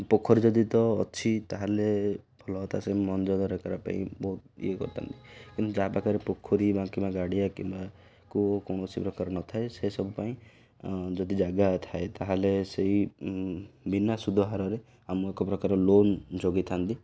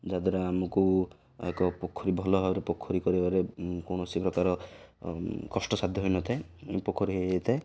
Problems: none marked